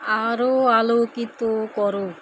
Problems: constant background noise